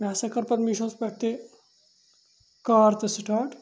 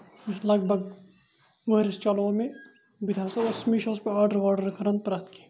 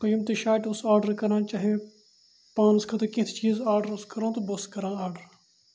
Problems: constant background noise